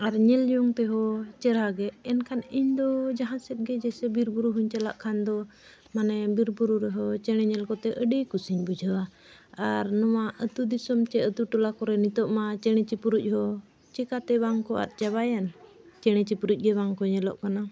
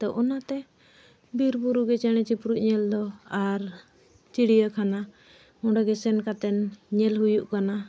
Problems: none marked